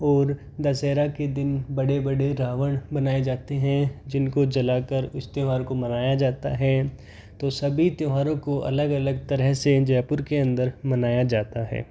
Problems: none marked